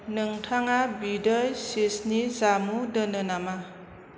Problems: constant background noise